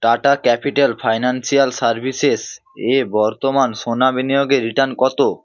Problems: none marked